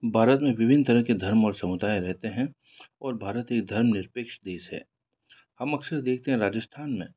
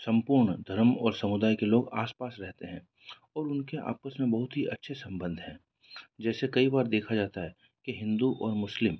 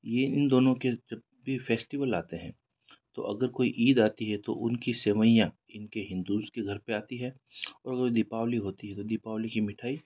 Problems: background sounds at intervals